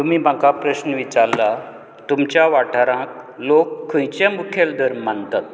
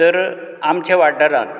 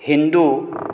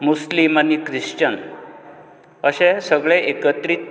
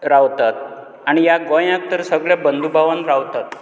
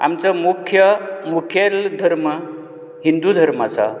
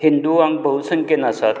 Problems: constant background noise